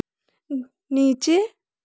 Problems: none marked